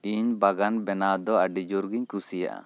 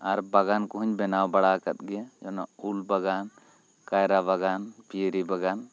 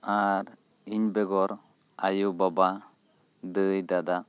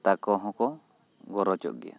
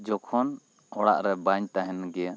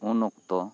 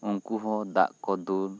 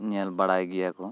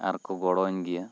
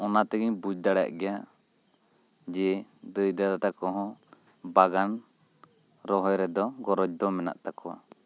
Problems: constant background noise